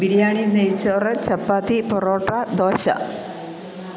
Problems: constant background noise